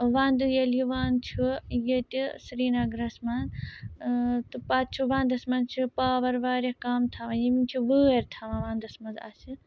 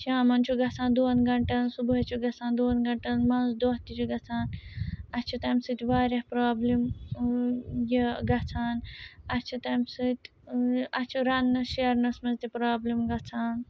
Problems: background sounds at intervals